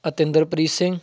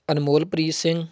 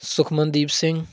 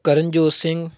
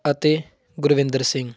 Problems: continuous background conversations